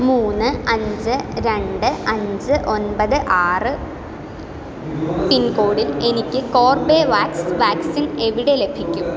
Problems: background conversations at intervals